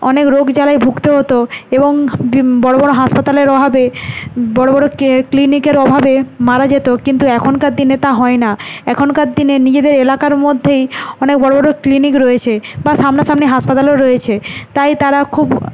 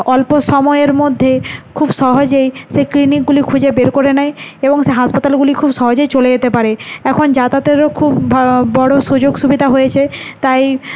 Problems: none marked